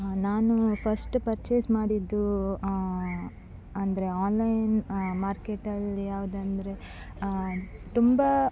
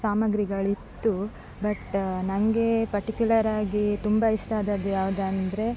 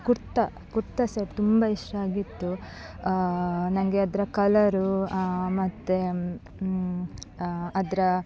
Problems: background sounds at intervals